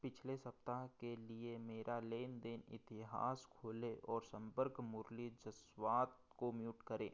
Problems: background sounds at intervals